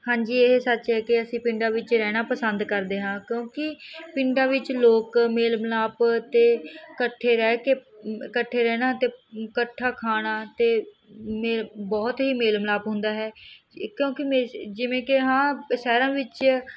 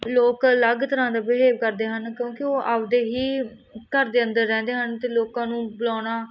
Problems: none marked